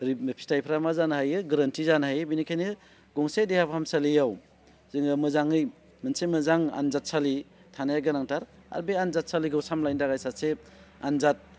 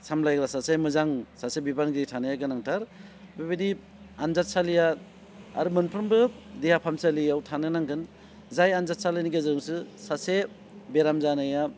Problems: constant background noise